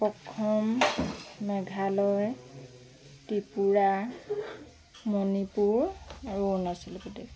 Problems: background sounds at intervals, background conversations at intervals